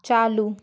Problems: none marked